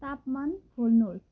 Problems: low volume